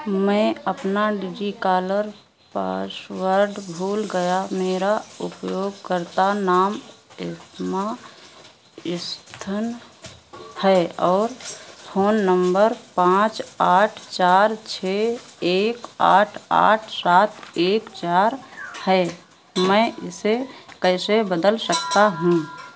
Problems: constant background noise